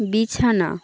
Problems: continuous background conversations